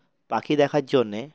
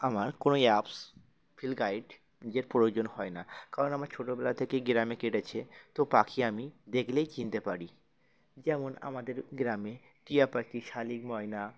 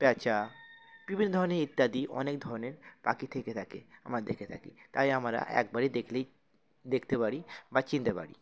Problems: constant background noise, continuous background conversations